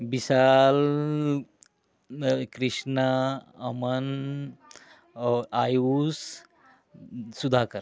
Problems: constant background noise